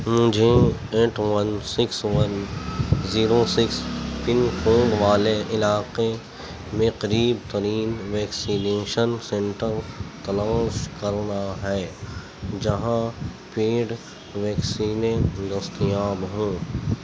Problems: constant background noise, low volume